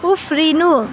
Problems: constant background noise